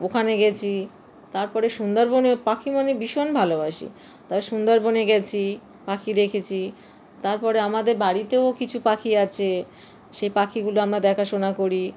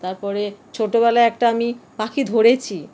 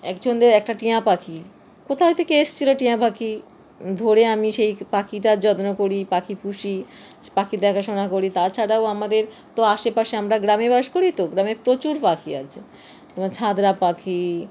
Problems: constant background noise